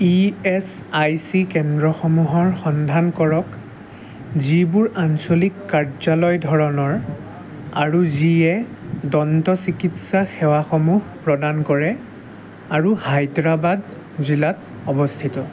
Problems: constant background noise, background conversations at intervals